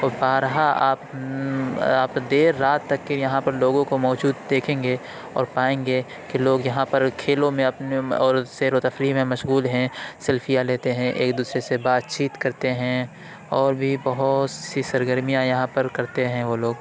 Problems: constant background noise, background conversations at intervals